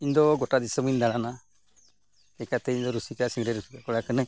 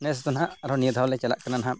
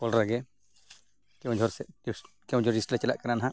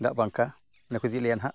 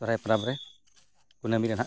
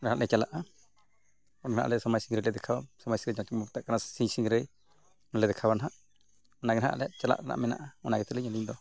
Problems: background sounds at intervals, background conversations at intervals